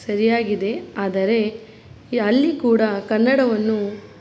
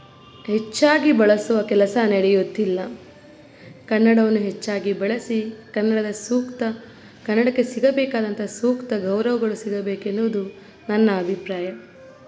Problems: background sounds at intervals